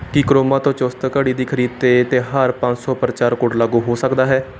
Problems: none marked